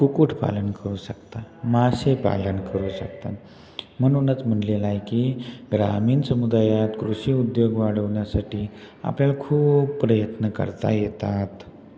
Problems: constant background noise, echo